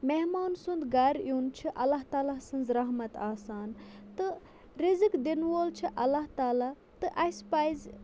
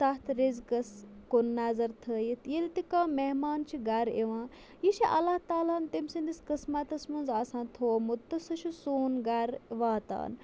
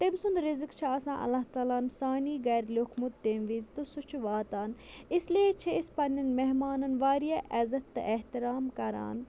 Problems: none marked